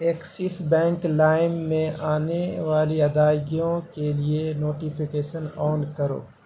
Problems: constant background noise